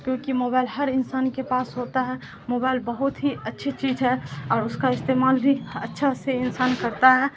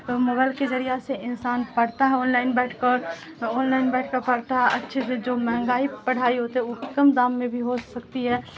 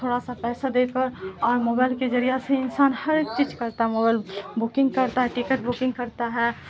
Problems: constant background noise